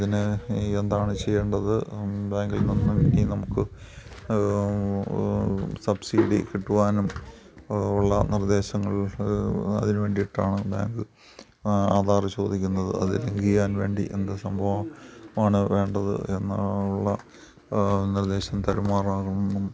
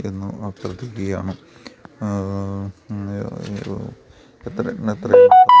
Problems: background sounds at intervals